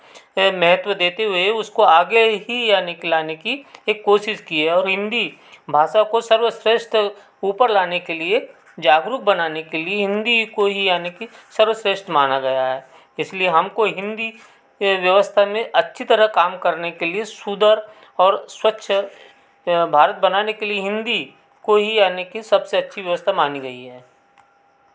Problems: background sounds at intervals